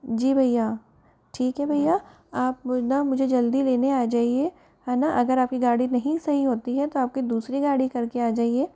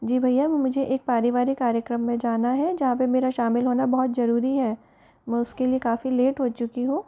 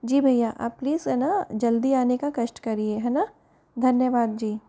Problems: background conversations at intervals